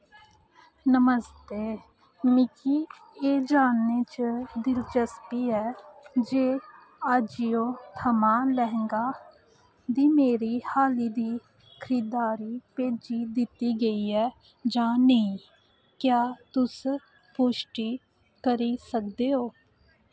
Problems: constant background noise